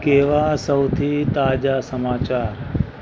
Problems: constant background noise